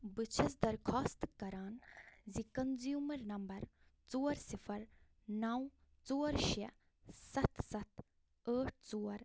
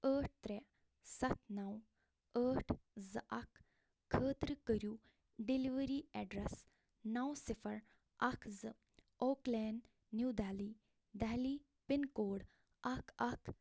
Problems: none marked